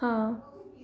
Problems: none marked